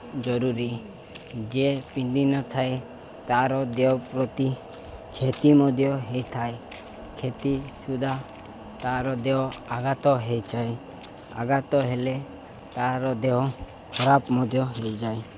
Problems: none marked